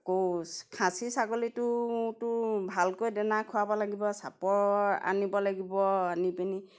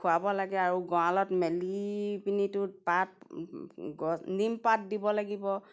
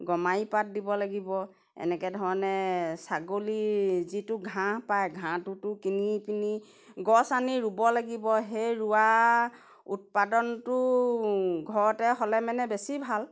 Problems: background sounds at intervals